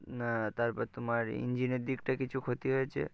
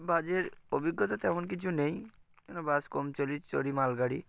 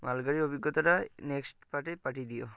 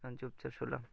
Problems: constant background noise